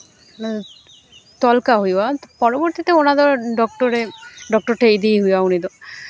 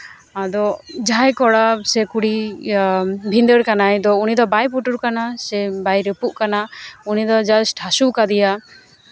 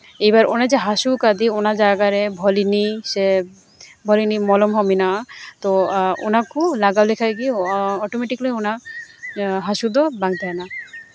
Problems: constant background noise, background conversations at intervals